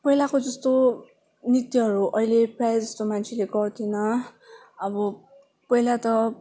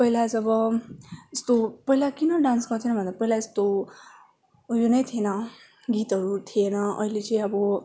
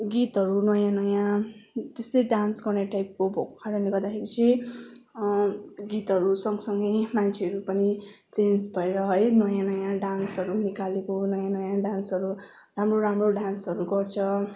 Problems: background sounds at intervals